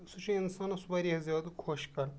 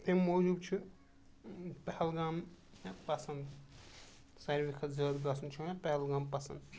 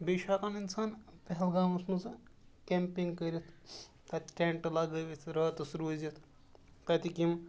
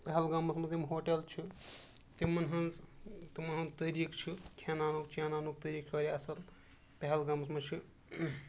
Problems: background sounds at intervals